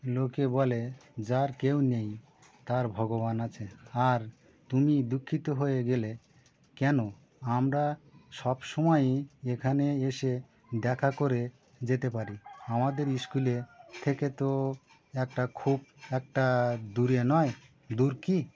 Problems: none marked